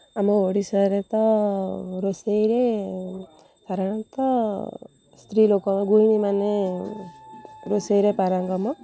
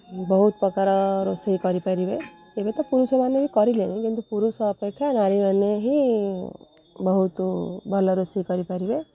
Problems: low volume